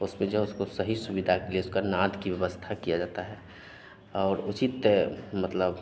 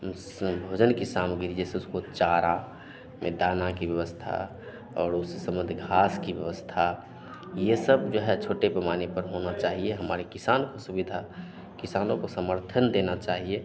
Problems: none marked